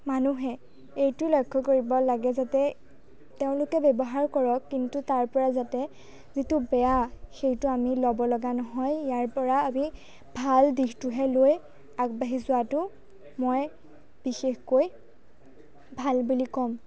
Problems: none marked